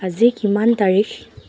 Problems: constant background noise